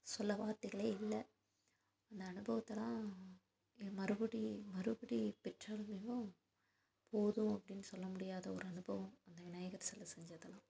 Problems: constant background noise